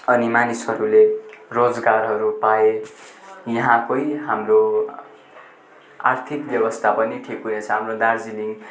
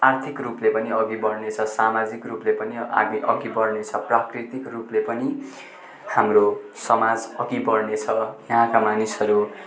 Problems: constant background noise, continuous background conversations